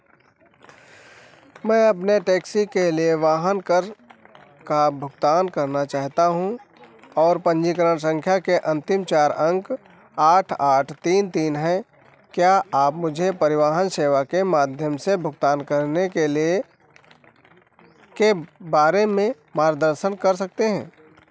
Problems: background sounds at intervals